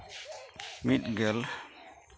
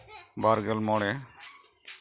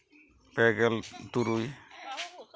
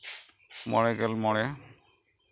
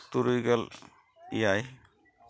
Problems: none marked